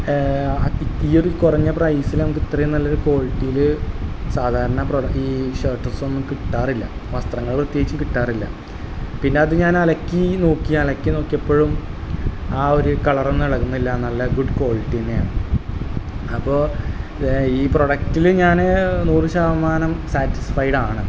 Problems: constant background noise, low volume